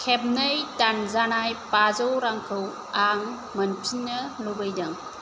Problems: constant background noise